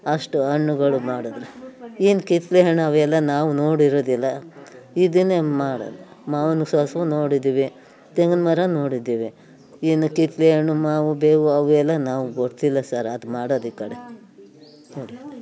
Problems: background conversations at intervals